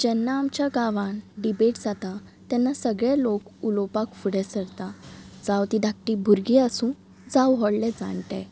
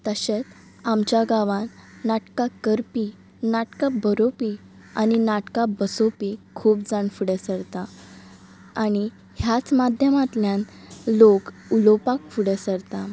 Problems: background sounds at intervals, background conversations at intervals